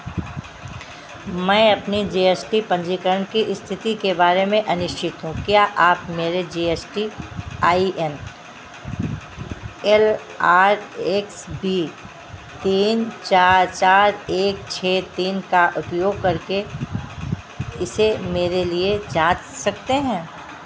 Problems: constant background noise